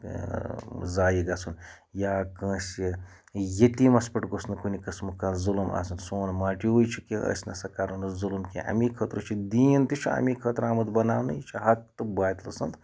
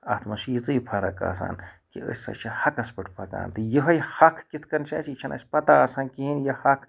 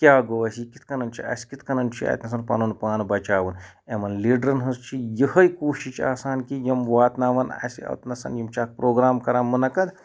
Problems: none marked